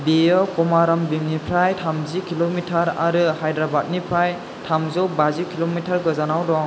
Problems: constant background noise